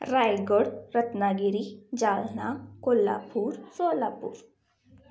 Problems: none marked